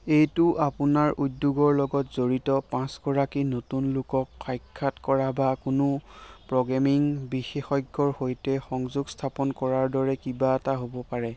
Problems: background sounds at intervals